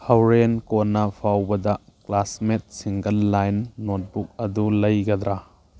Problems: none marked